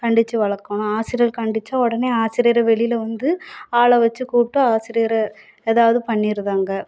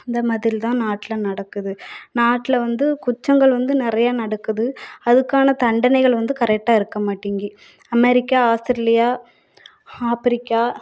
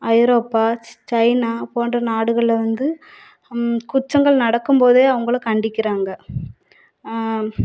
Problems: background sounds at intervals